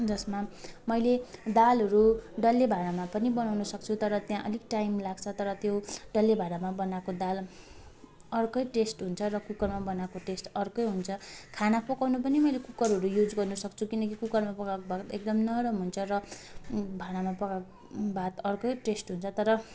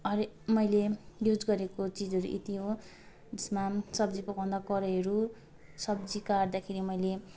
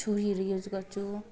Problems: constant background noise, continuous background conversations